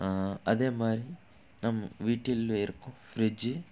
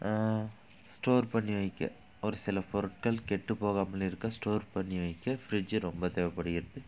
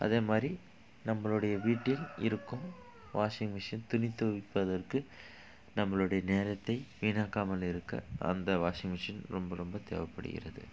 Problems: background sounds at intervals